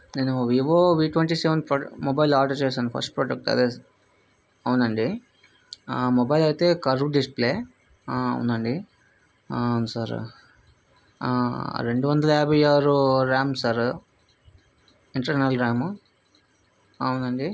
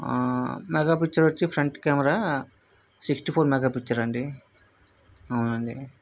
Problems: none marked